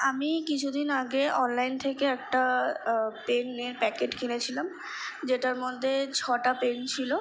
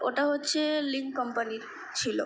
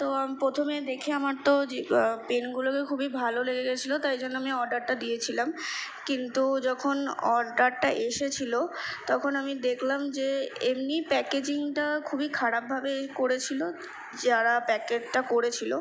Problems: constant background noise